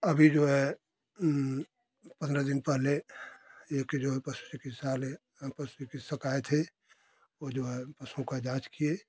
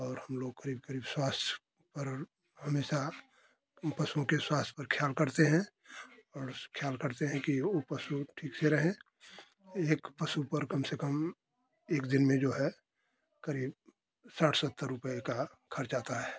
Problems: constant background noise